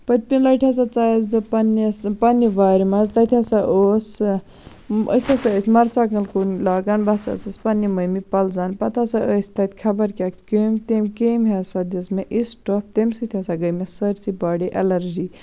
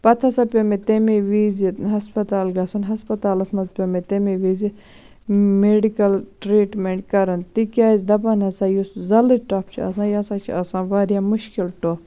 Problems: constant background noise